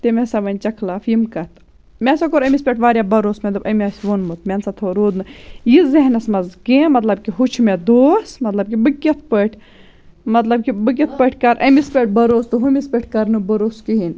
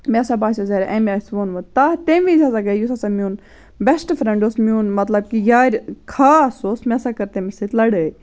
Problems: none marked